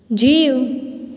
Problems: echo